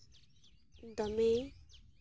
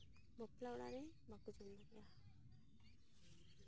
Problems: background sounds at intervals, low volume